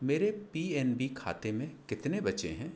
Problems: constant background noise